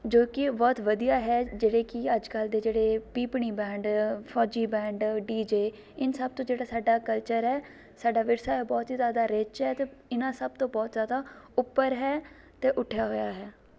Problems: background sounds at intervals, background conversations at intervals